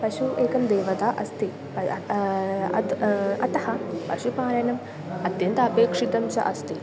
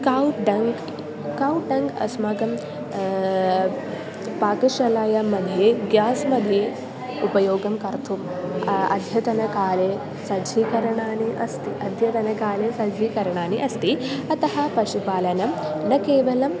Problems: constant background noise, continuous background conversations